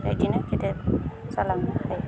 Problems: none marked